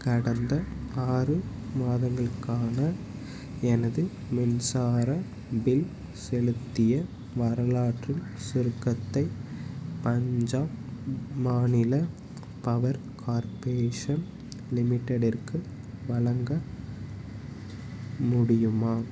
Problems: background sounds at intervals